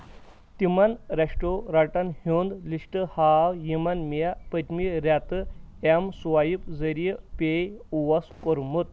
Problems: none marked